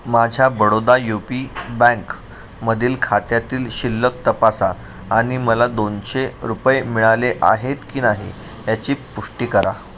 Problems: none marked